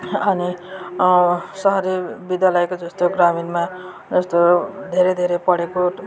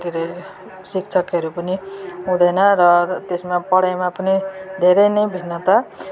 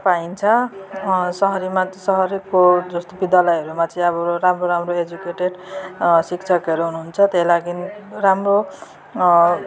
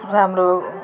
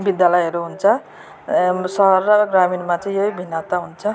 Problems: continuous background conversations